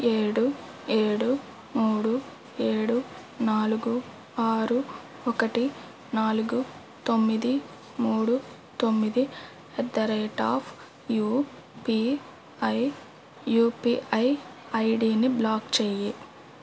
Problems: none marked